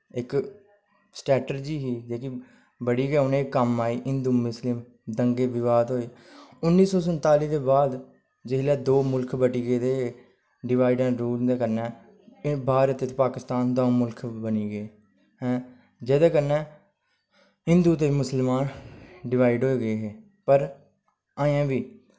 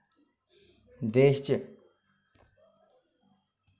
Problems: constant background noise